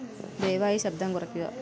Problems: none marked